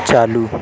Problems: constant background noise